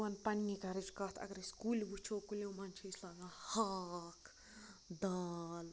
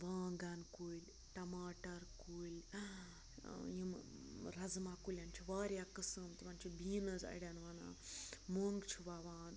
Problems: constant background noise, low volume